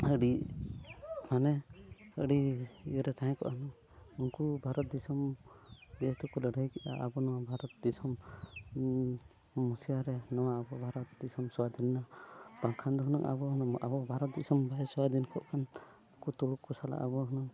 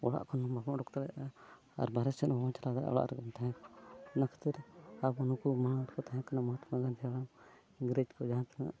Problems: background sounds at intervals